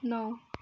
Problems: background sounds at intervals